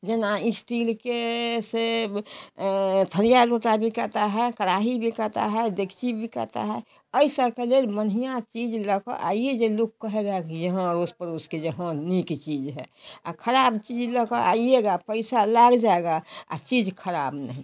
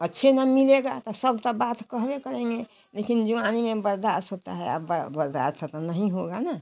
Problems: none marked